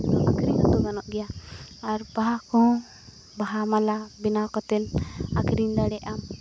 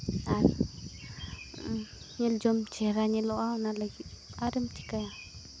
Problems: constant background noise